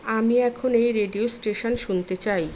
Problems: constant background noise